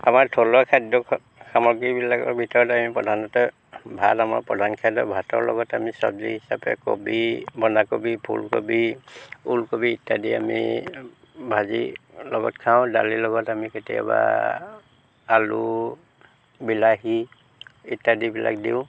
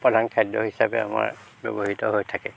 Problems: none marked